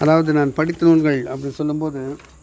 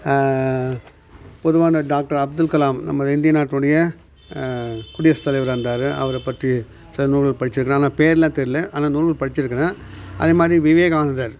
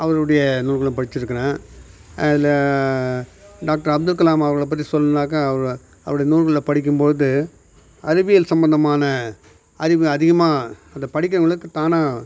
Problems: none marked